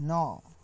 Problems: none marked